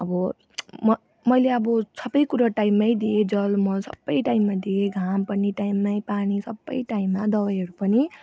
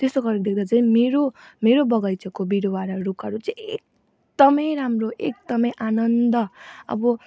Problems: background sounds at intervals